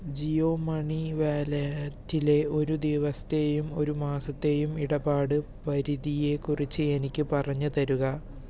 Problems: none marked